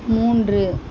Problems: constant background noise